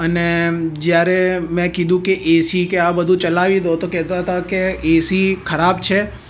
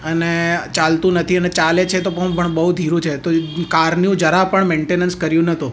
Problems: none marked